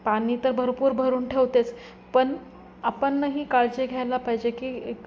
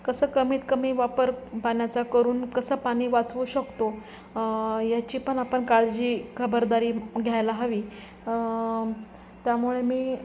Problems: constant background noise, background conversations at intervals